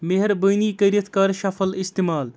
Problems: background conversations at intervals